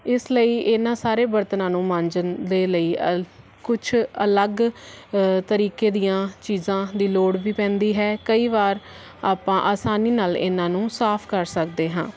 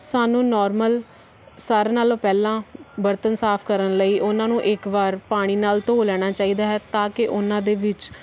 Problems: none marked